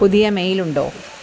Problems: constant background noise